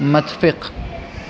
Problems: constant background noise